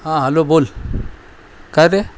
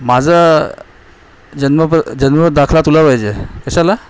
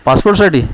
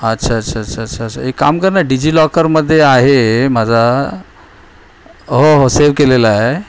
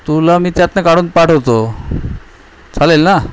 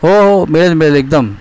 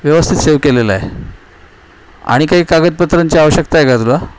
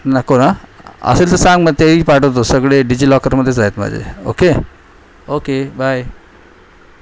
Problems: none marked